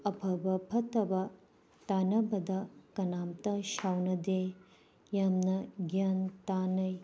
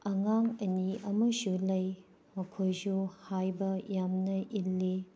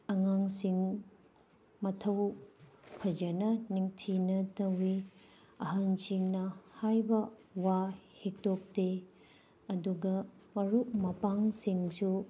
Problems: background sounds at intervals